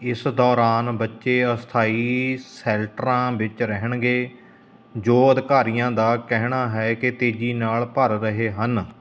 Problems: constant background noise